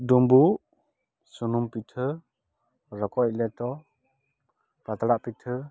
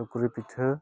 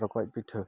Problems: none marked